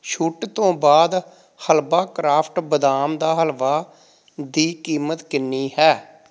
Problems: none marked